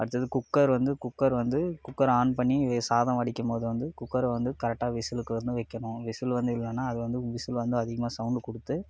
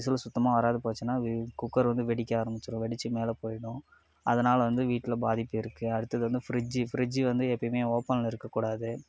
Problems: background sounds at intervals